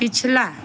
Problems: none marked